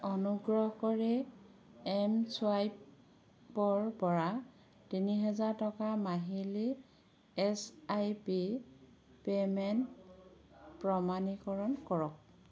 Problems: none marked